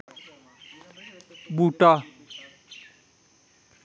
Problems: none marked